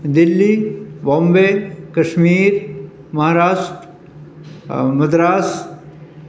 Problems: background sounds at intervals